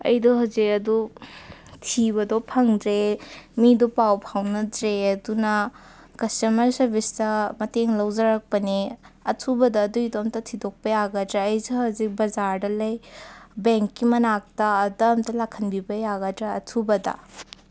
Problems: none marked